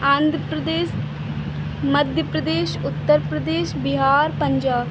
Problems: none marked